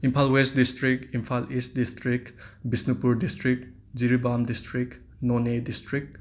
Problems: none marked